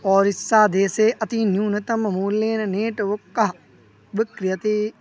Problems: none marked